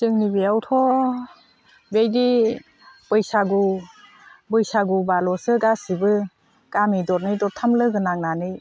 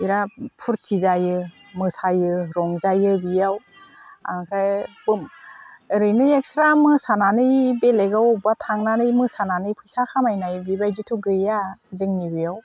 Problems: constant background noise